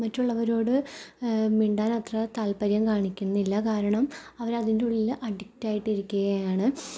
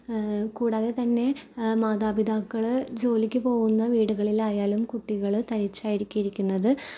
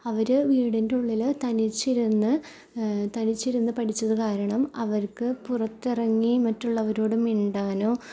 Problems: low volume